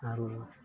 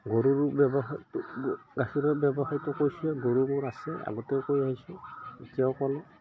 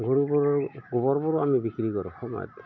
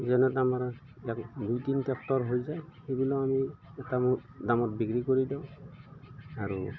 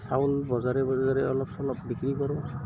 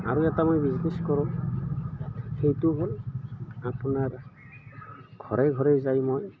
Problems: background sounds at intervals, background conversations at intervals